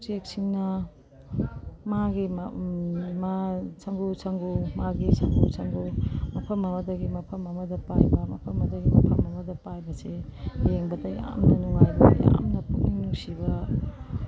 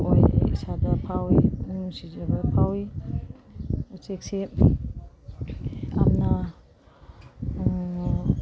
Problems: background sounds at intervals, background conversations at intervals